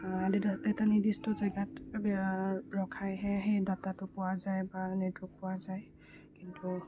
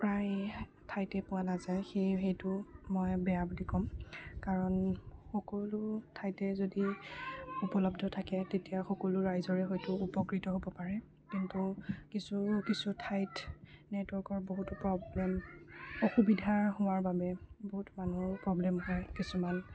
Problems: background sounds at intervals, low volume